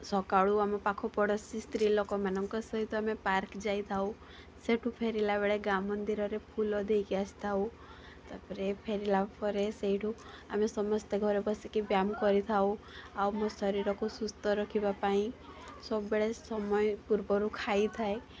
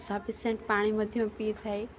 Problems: constant background noise, continuous background conversations